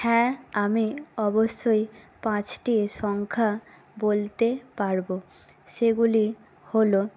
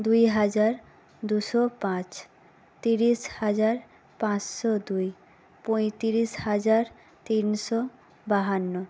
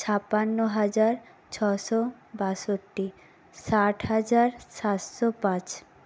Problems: none marked